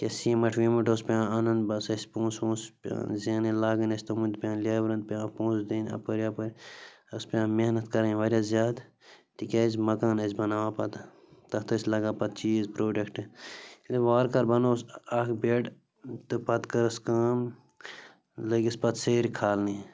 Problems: constant background noise